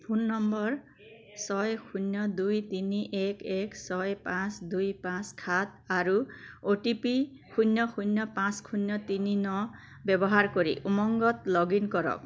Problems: constant background noise